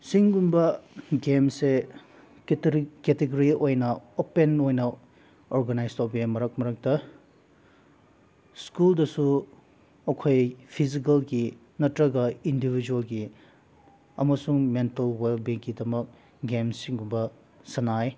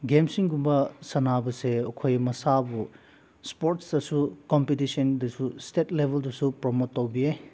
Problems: none marked